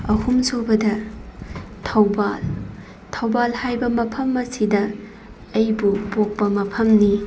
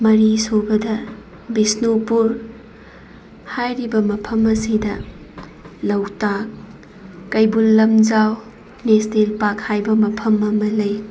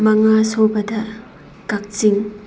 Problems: constant background noise